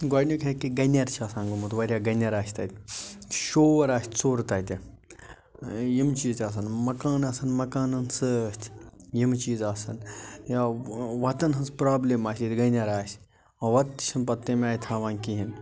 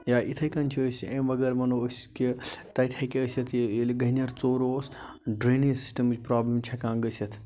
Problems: background sounds at intervals